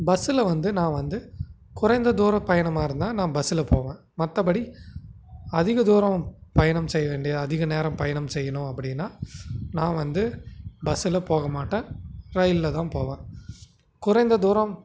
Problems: constant background noise